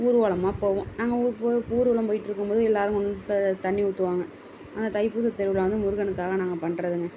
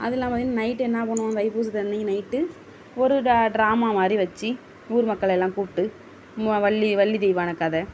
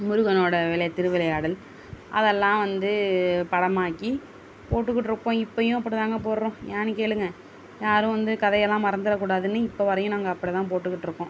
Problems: constant background noise